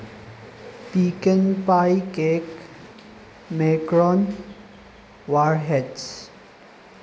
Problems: constant background noise